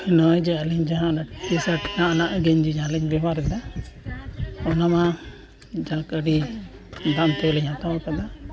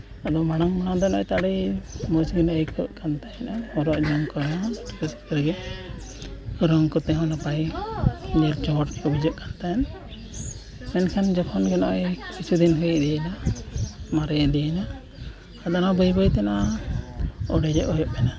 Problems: background sounds at intervals, continuous background conversations